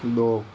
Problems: none marked